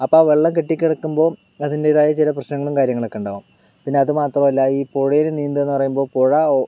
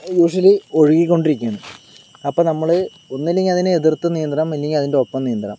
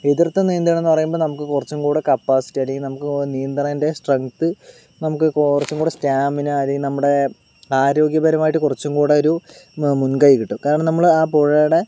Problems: none marked